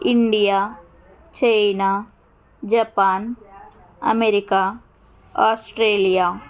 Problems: background conversations at intervals